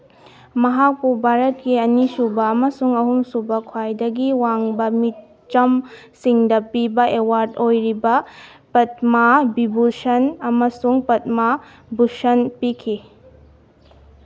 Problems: none marked